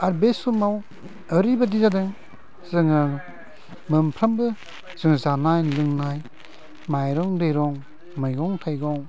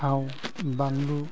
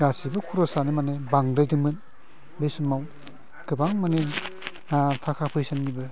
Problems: low volume